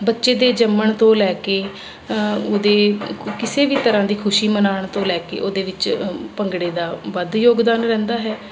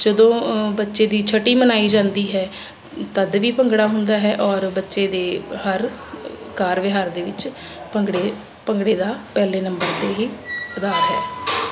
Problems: constant background noise